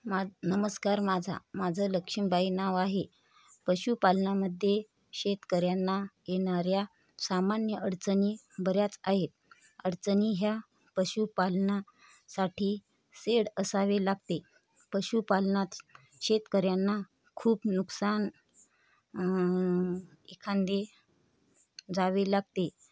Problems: none marked